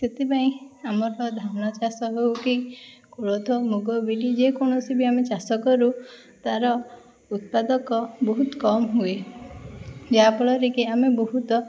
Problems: none marked